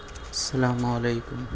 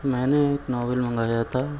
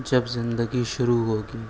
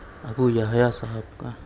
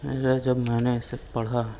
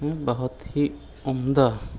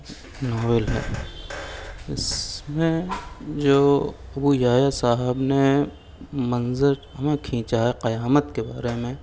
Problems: none marked